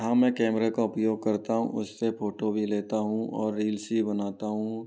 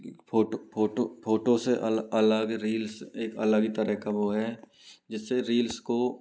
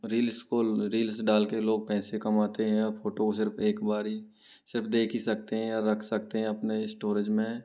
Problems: low volume